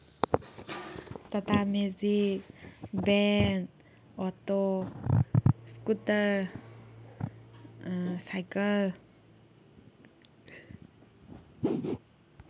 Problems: none marked